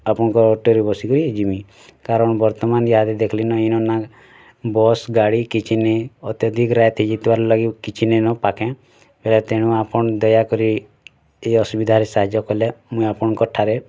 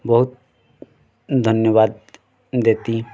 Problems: constant background noise